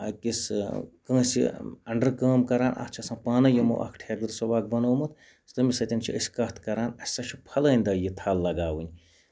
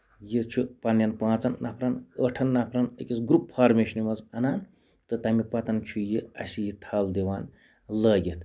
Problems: background sounds at intervals